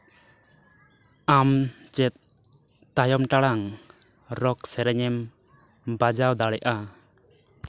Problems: background sounds at intervals